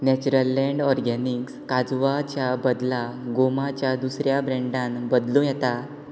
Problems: constant background noise